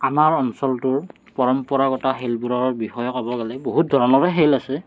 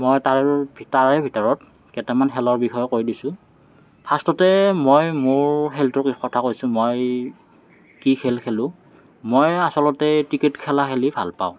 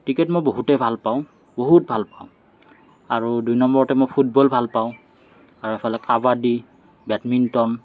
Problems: none marked